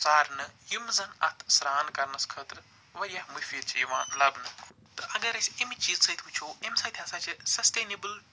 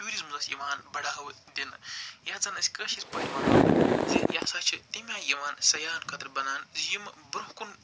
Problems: none marked